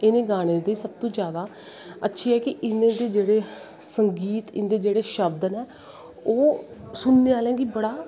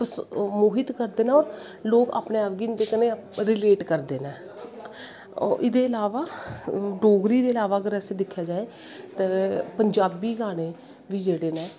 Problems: constant background noise